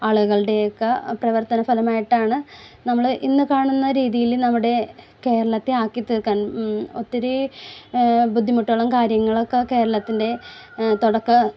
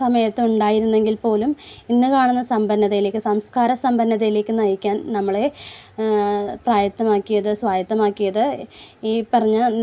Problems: none marked